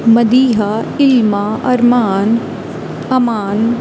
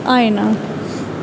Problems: none marked